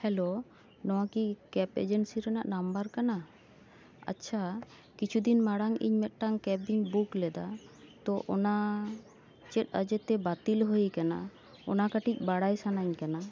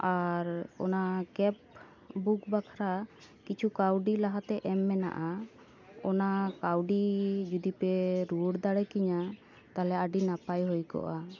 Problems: background sounds at intervals